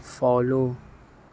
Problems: none marked